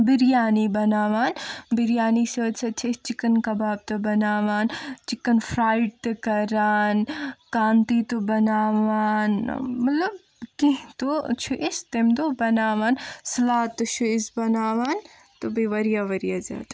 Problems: none marked